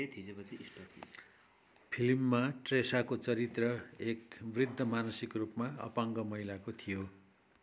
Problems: background conversations at intervals